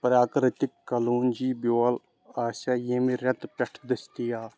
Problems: background sounds at intervals